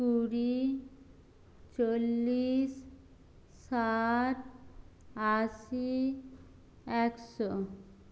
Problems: low volume